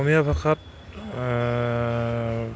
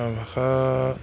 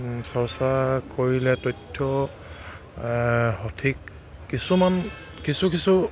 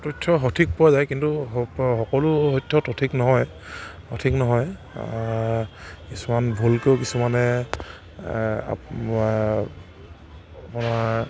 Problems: constant background noise